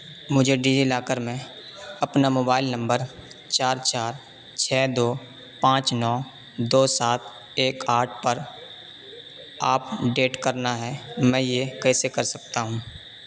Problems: constant background noise